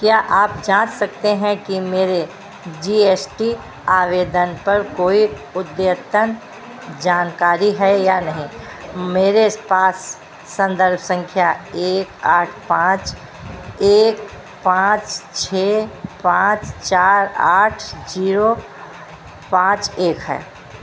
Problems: constant background noise